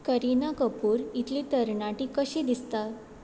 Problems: constant background noise